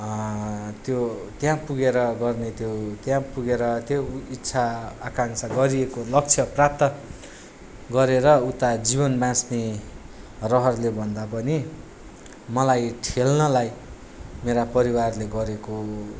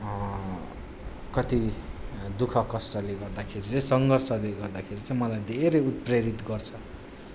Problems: none marked